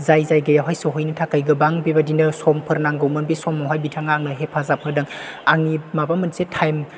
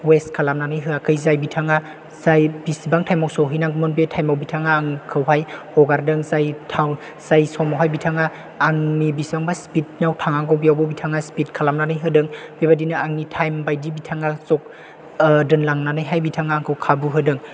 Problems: none marked